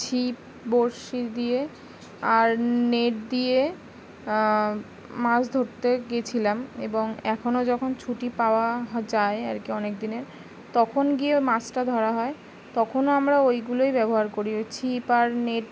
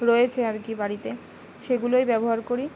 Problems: constant background noise